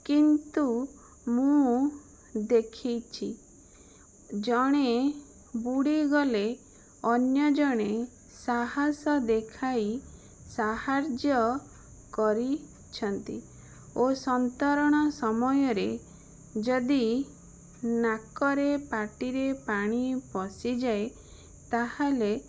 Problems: none marked